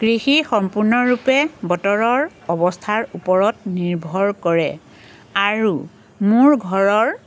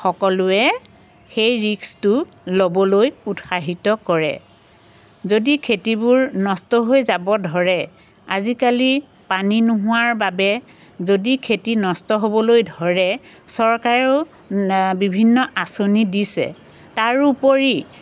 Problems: constant background noise